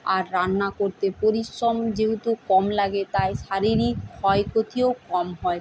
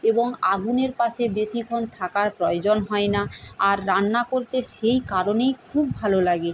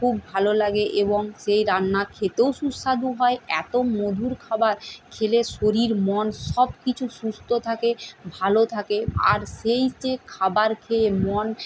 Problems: none marked